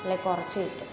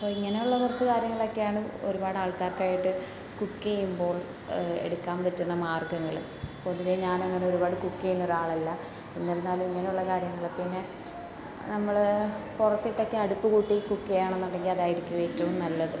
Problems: constant background noise